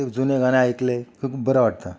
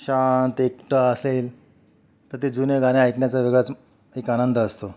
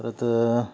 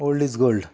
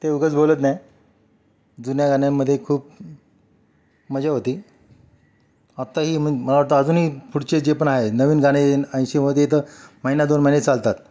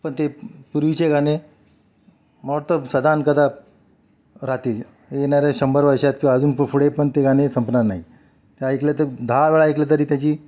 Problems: constant background noise, continuous background conversations